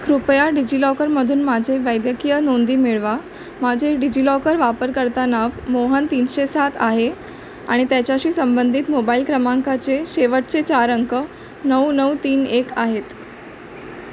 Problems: constant background noise